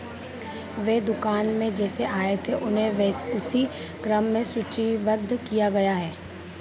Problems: constant background noise